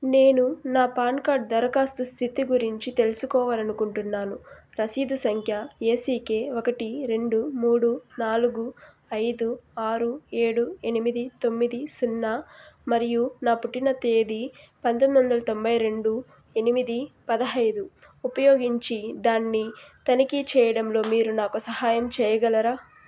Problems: background sounds at intervals